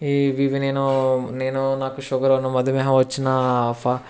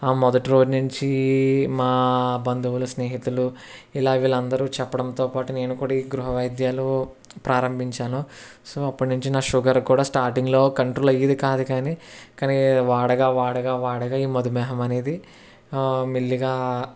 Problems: constant background noise, background conversations at intervals